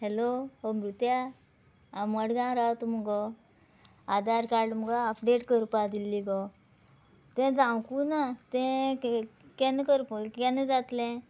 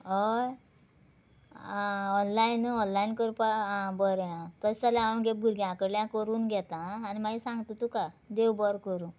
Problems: none marked